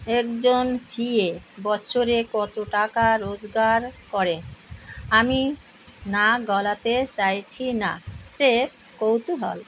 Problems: constant background noise